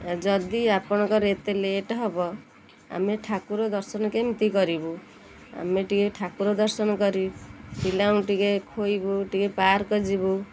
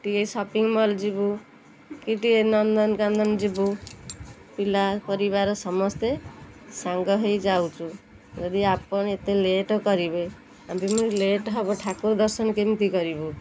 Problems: none marked